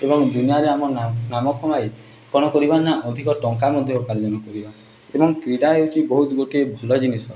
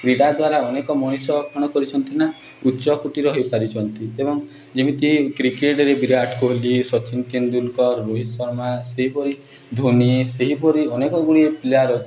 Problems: background sounds at intervals, background conversations at intervals